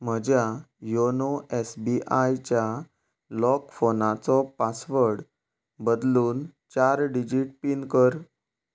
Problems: background sounds at intervals